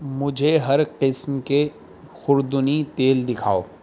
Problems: constant background noise